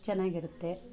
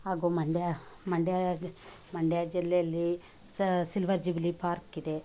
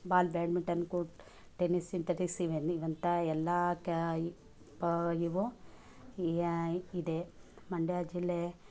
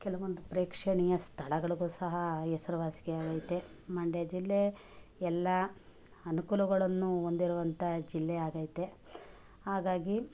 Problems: none marked